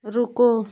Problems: none marked